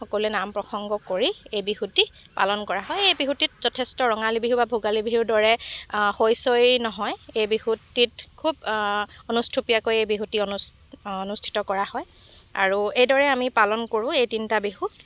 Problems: none marked